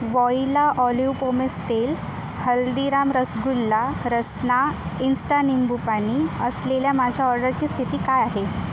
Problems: none marked